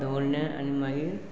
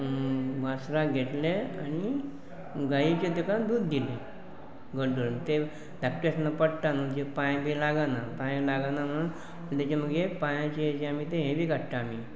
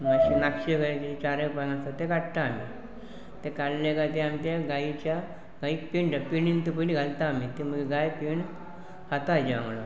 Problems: constant background noise, continuous background conversations